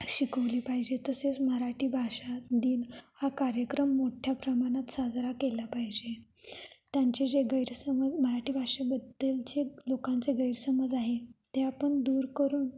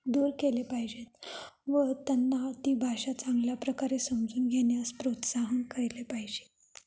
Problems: background sounds at intervals, echo